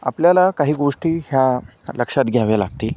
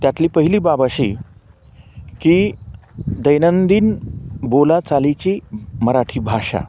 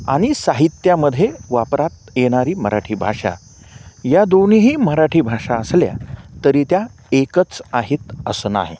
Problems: none marked